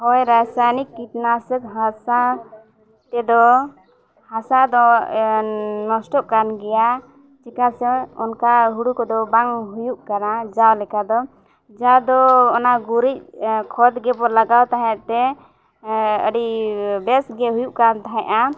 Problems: constant background noise, background conversations at intervals